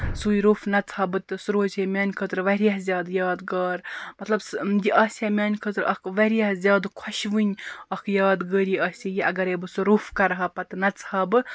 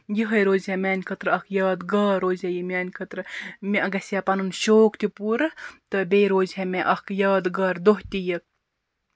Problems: background sounds at intervals